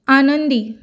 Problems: none marked